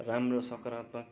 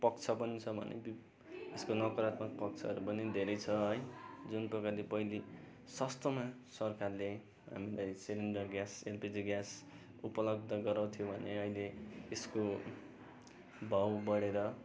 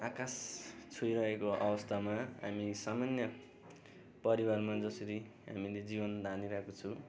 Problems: none marked